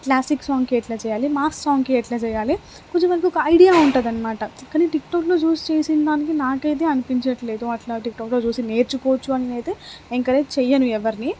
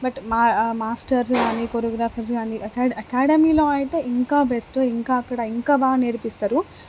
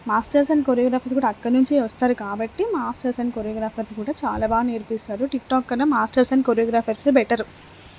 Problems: constant background noise